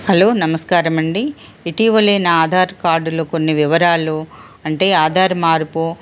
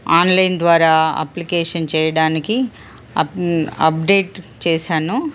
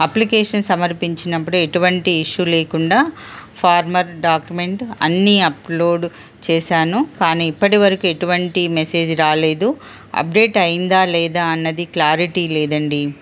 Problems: constant background noise